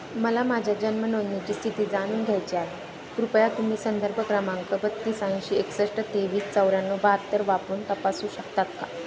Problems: constant background noise, background conversations at intervals